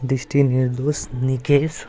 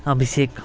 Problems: background sounds at intervals